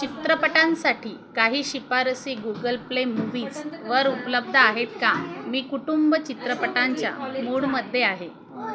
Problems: none marked